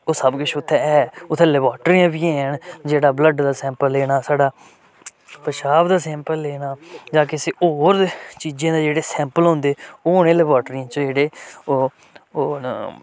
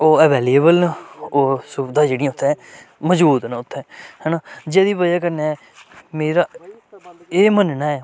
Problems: constant background noise